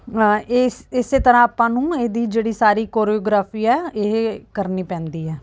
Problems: background sounds at intervals